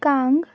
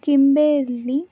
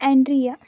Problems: background sounds at intervals